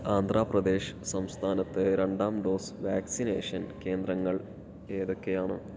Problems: low volume